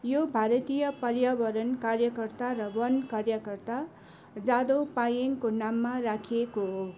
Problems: background sounds at intervals